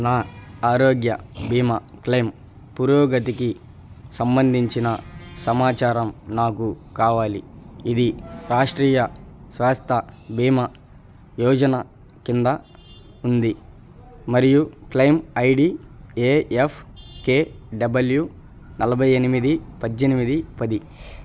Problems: none marked